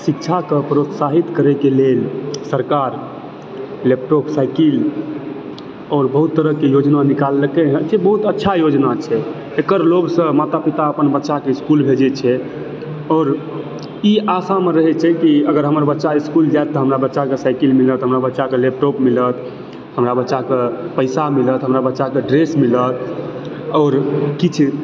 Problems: constant background noise, background conversations at intervals